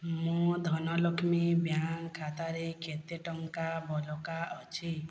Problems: low volume